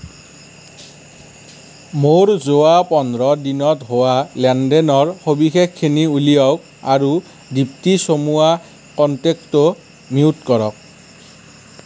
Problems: none marked